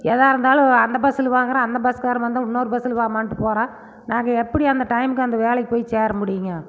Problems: background sounds at intervals